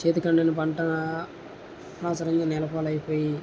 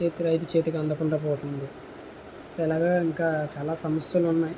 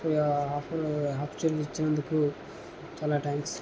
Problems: none marked